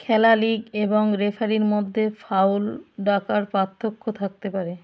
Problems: background sounds at intervals